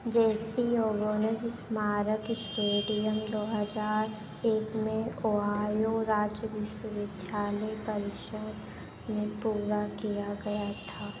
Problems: constant background noise